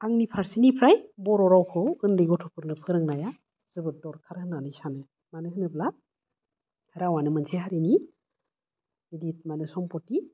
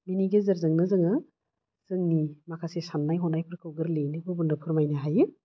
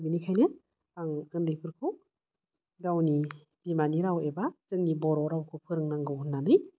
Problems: none marked